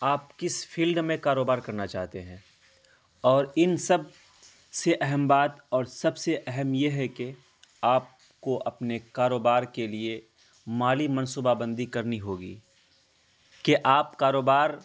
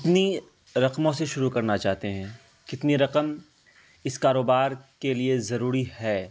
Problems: constant background noise